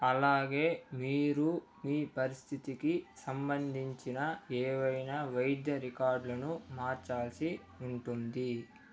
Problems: none marked